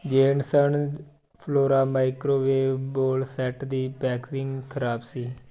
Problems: background conversations at intervals